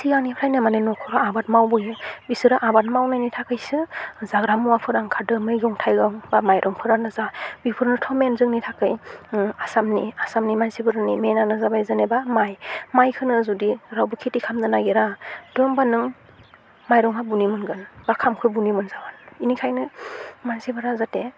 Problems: low volume